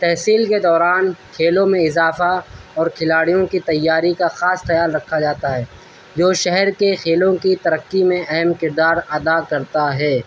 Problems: constant background noise